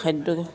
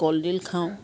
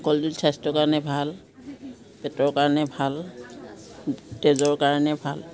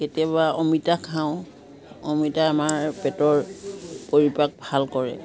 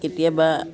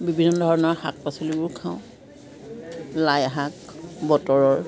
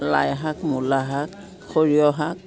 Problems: background sounds at intervals, background conversations at intervals